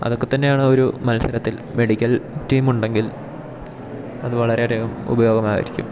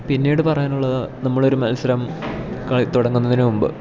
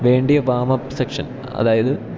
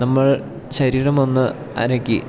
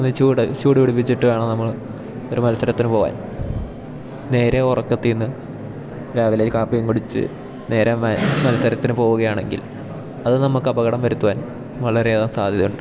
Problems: background sounds at intervals